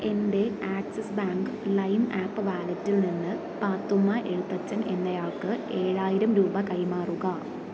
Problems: none marked